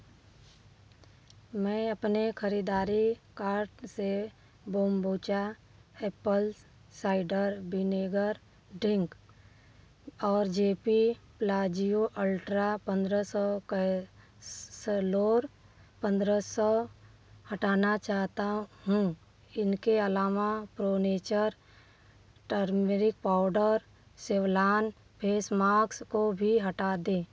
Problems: background sounds at intervals, continuous background conversations